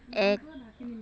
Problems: background conversations at intervals